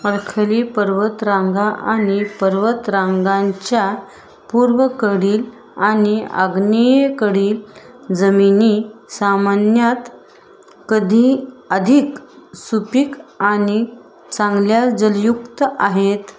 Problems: background sounds at intervals